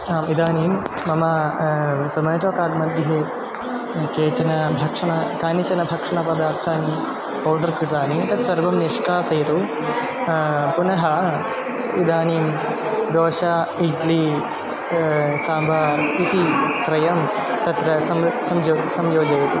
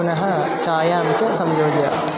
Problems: constant background noise